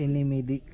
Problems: constant background noise